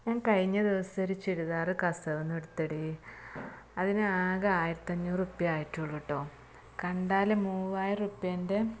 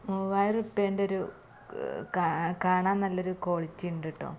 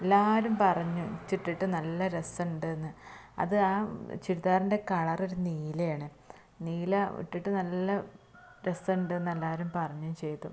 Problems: constant background noise